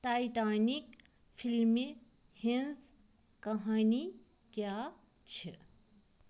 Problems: none marked